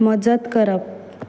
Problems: background sounds at intervals